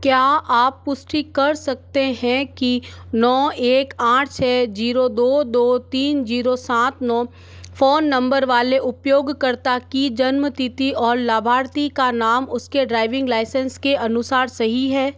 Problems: none marked